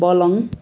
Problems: continuous background conversations